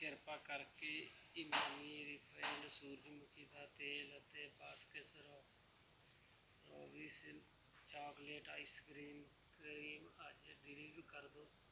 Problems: background sounds at intervals